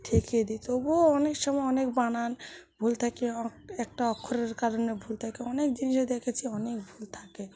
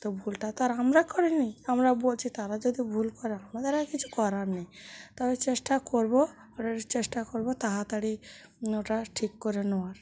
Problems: none marked